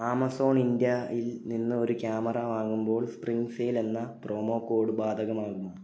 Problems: none marked